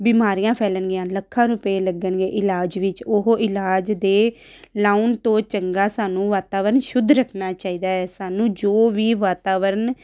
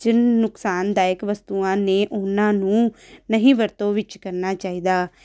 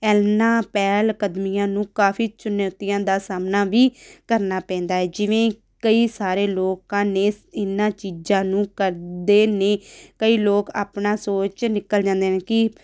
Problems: background sounds at intervals